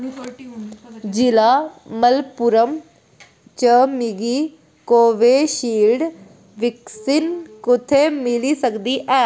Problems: none marked